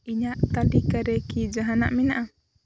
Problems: constant background noise